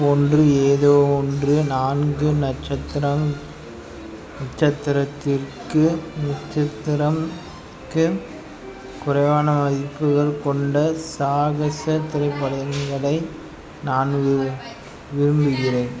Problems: background sounds at intervals, background conversations at intervals